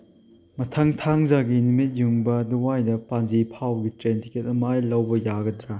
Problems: none marked